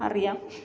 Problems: background sounds at intervals